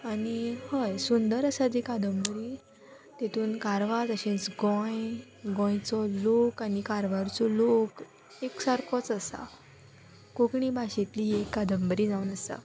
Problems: none marked